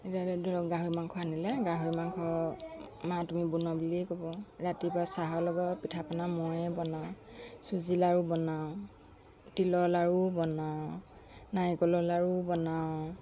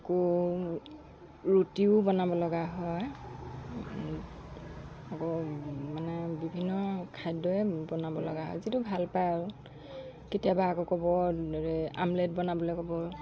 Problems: background sounds at intervals